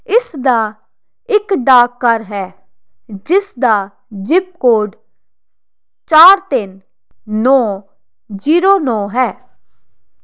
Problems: constant background noise